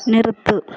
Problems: none marked